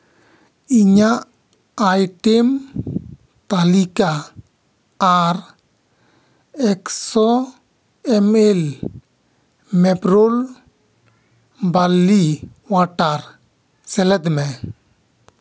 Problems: none marked